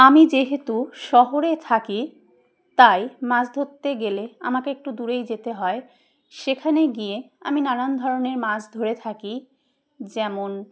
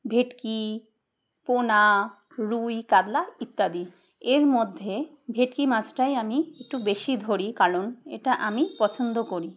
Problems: background sounds at intervals